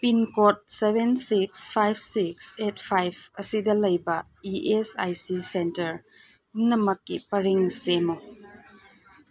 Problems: background sounds at intervals